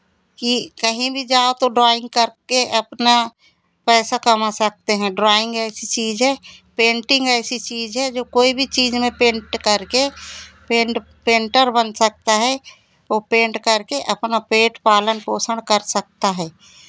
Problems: constant background noise, continuous background conversations